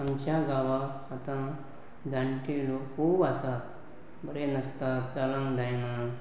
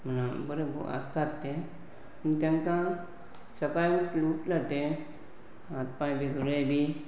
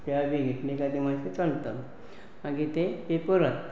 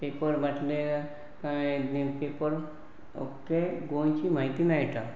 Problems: constant background noise